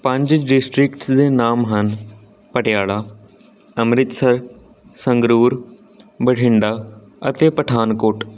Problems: constant background noise